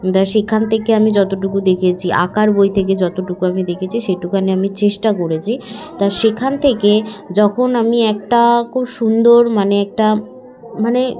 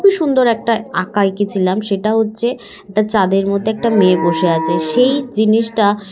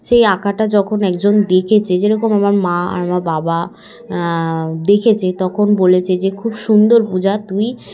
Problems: constant background noise, continuous background conversations